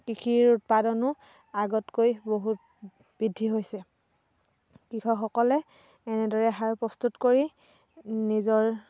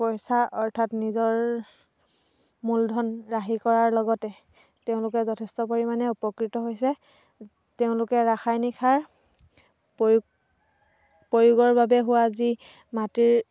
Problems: constant background noise